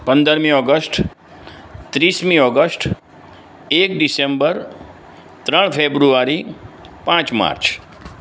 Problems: none marked